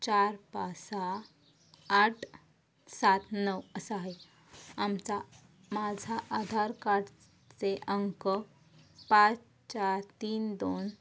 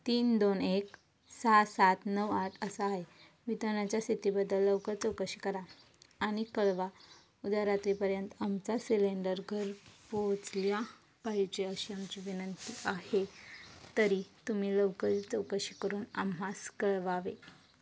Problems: constant background noise